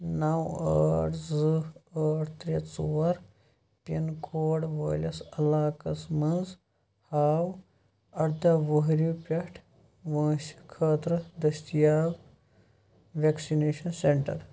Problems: none marked